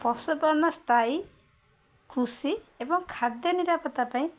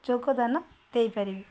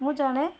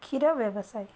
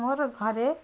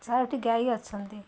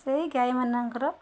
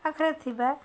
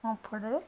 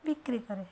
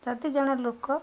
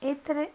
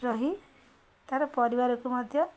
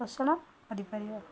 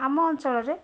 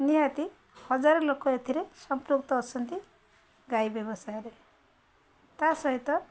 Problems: constant background noise, continuous background conversations